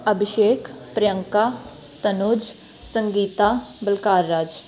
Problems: constant background noise